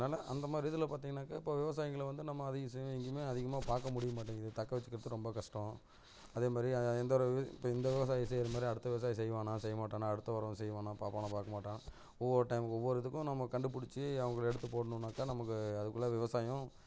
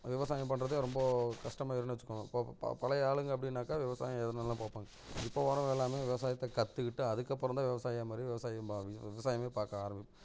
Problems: none marked